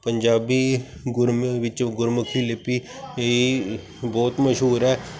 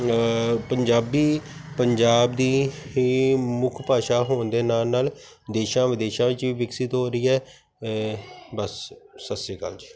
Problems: constant background noise